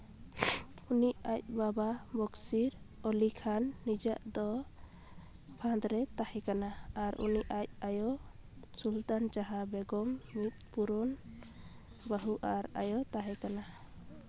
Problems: none marked